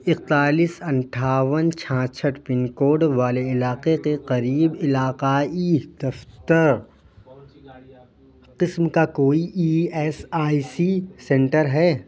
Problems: constant background noise, continuous background conversations